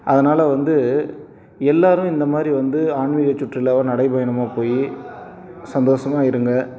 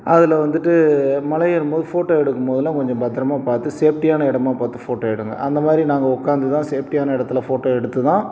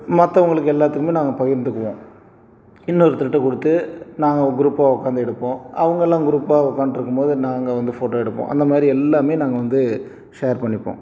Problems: background conversations at intervals